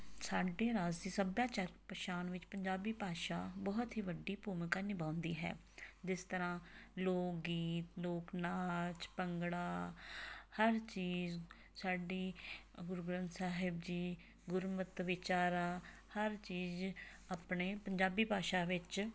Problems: background sounds at intervals